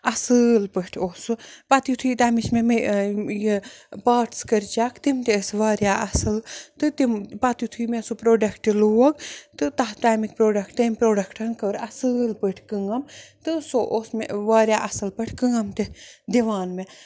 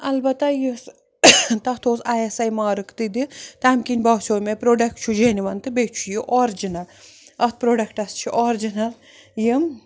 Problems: none marked